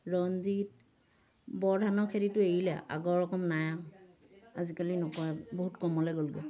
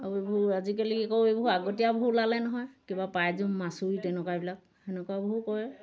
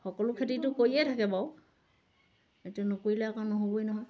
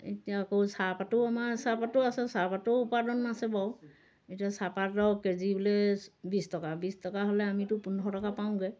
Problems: none marked